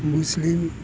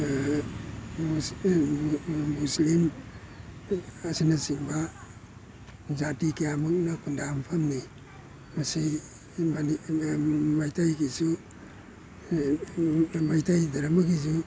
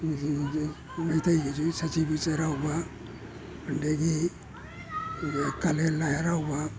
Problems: background sounds at intervals